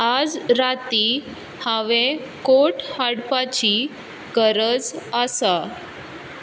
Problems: constant background noise